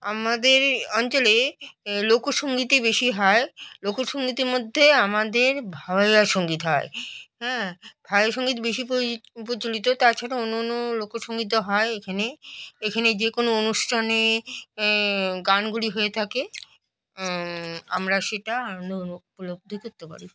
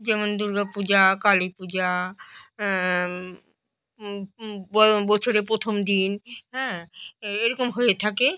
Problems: none marked